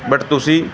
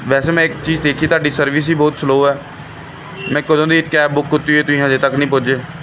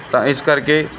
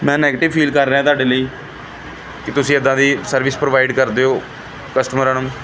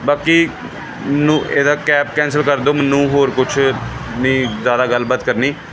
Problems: none marked